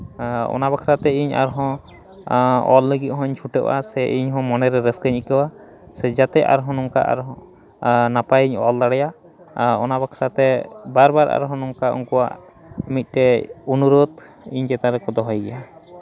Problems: constant background noise, continuous background conversations